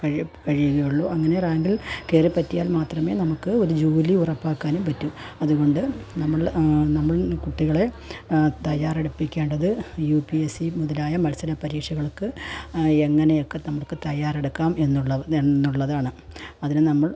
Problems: background sounds at intervals, low volume